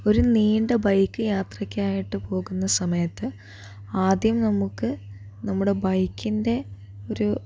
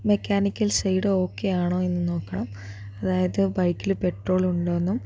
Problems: none marked